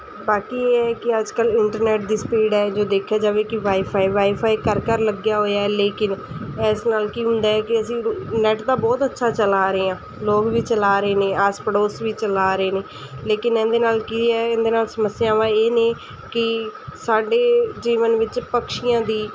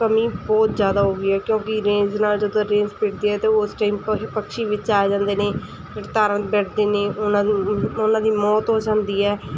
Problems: none marked